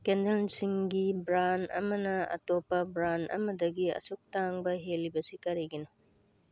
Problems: none marked